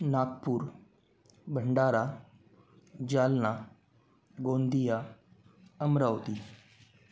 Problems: none marked